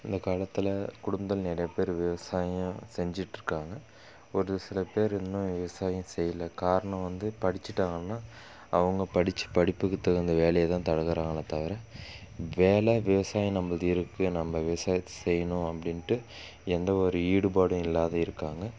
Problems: constant background noise